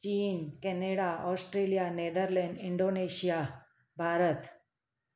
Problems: echo